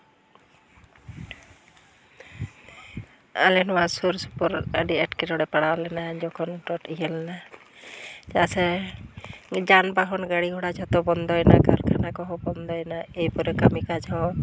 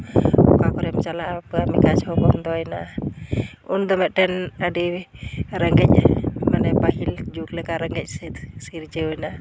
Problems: none marked